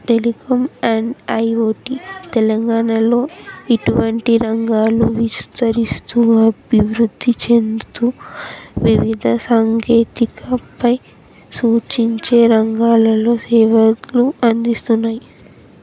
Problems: continuous background conversations